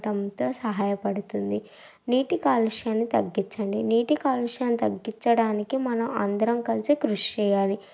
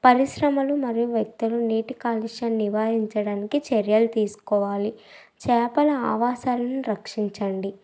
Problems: none marked